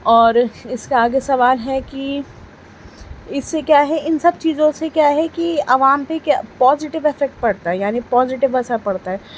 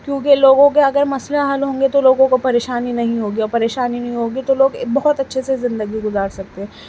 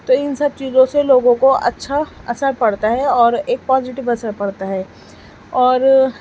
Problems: constant background noise